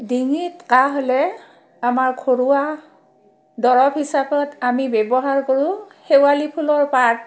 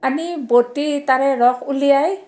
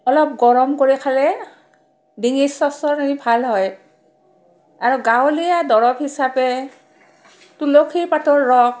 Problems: background sounds at intervals, background conversations at intervals